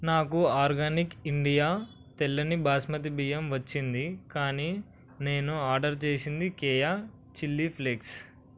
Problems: none marked